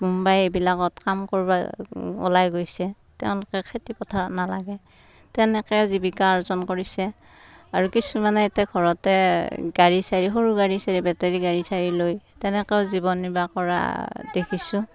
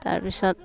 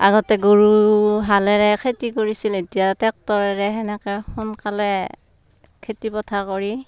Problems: none marked